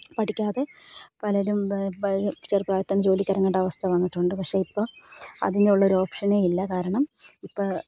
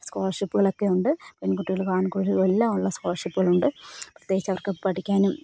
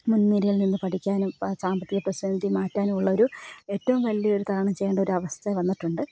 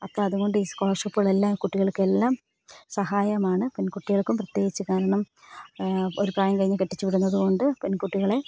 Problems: none marked